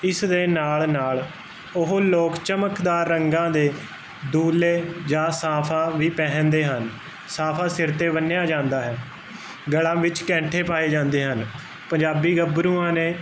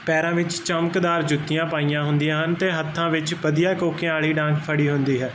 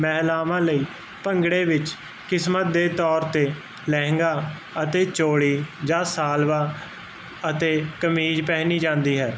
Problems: constant background noise